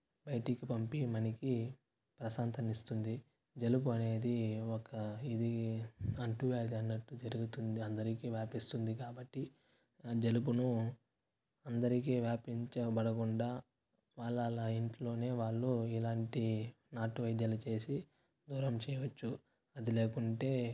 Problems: constant background noise, low volume